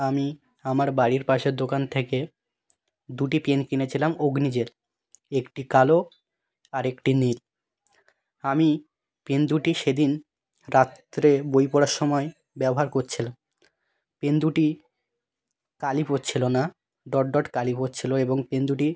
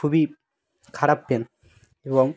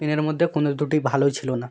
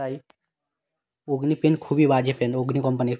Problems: background sounds at intervals, background conversations at intervals